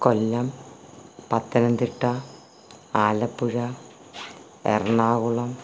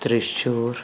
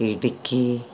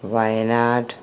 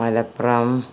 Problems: constant background noise